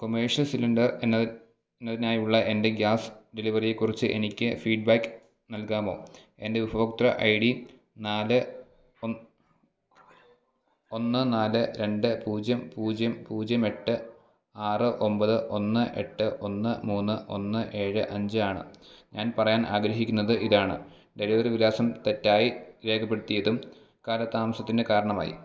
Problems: background sounds at intervals, background conversations at intervals